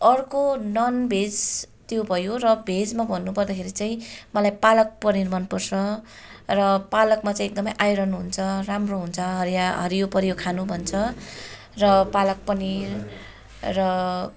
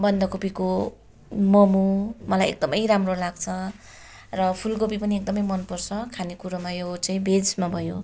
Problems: constant background noise